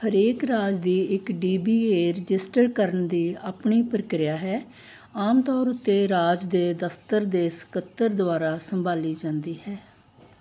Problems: background sounds at intervals